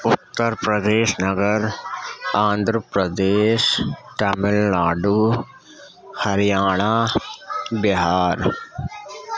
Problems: constant background noise, continuous background conversations